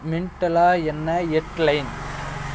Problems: background sounds at intervals